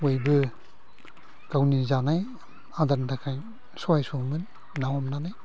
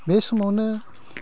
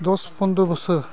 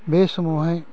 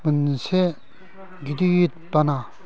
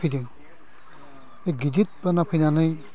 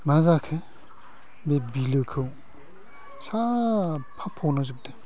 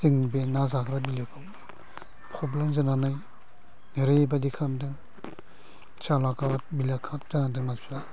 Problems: low volume